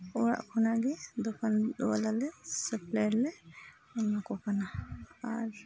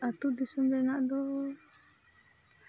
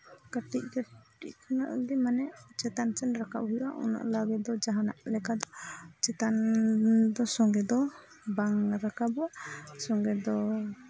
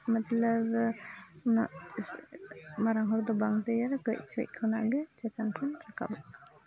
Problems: background sounds at intervals, continuous background conversations, low volume